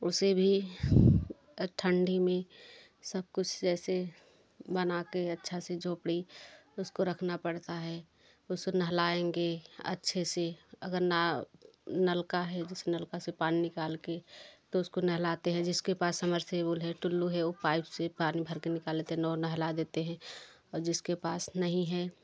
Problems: constant background noise, background conversations at intervals